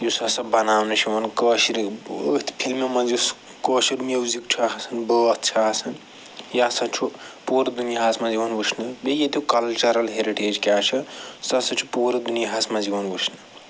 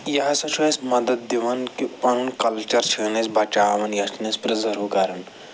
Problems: none marked